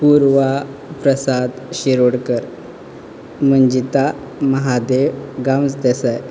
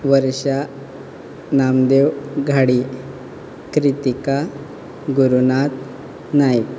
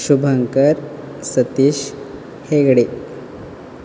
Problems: none marked